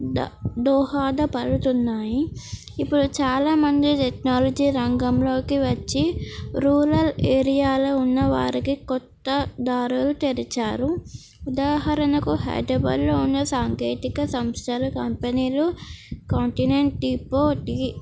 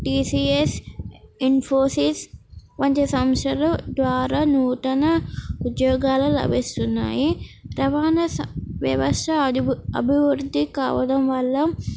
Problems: none marked